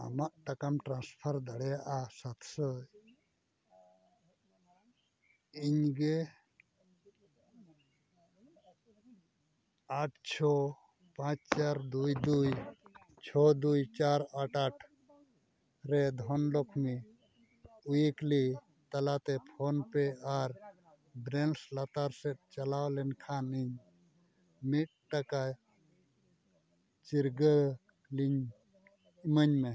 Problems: background sounds at intervals